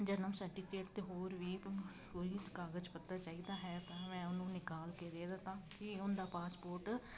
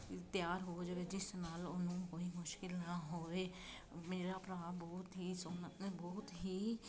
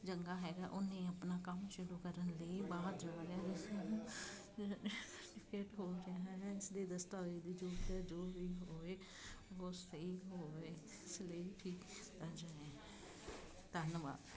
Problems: constant background noise, continuous background conversations